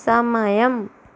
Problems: none marked